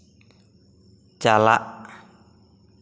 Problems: echo